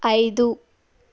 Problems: constant background noise